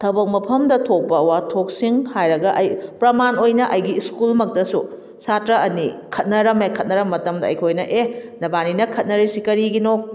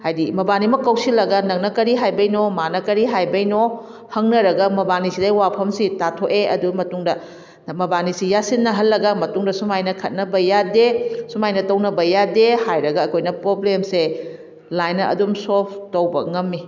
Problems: background sounds at intervals